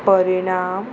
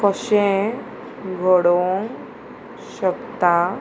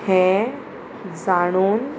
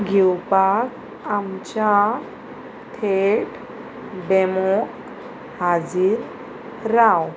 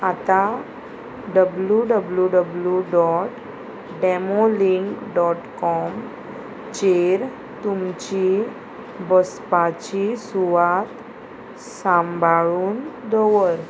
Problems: constant background noise